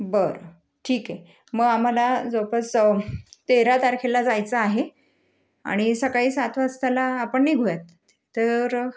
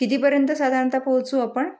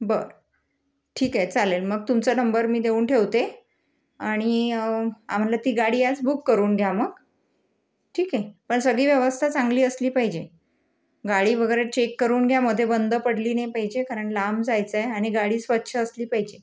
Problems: none marked